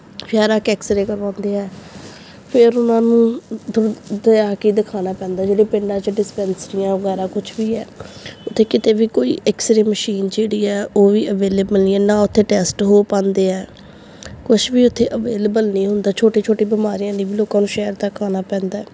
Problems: background sounds at intervals